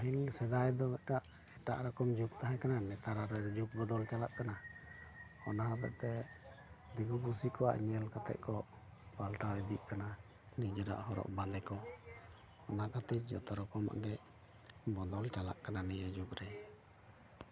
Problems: background sounds at intervals, background conversations at intervals